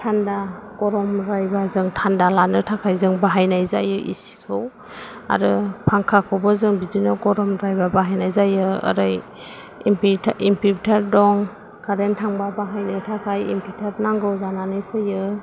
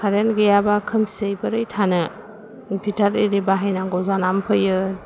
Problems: none marked